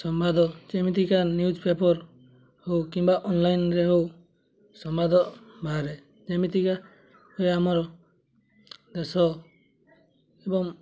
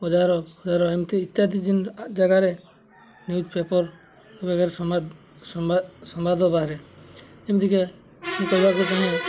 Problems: constant background noise, continuous background conversations